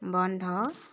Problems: background sounds at intervals, background conversations at intervals